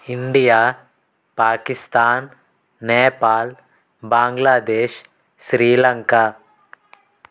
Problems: constant background noise, background conversations at intervals